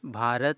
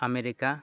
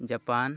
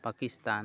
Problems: none marked